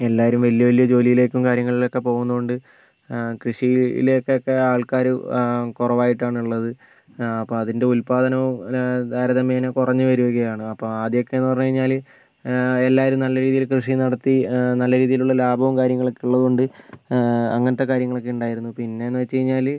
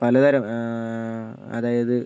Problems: background sounds at intervals